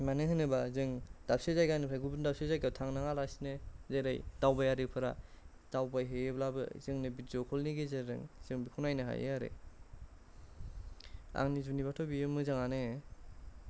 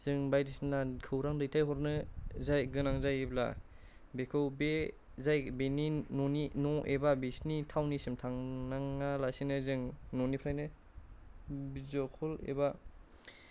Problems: low volume